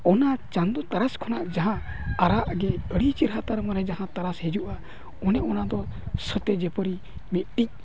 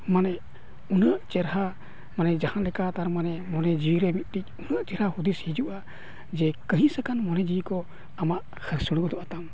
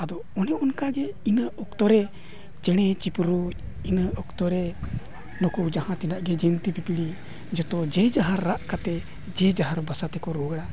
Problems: continuous background conversations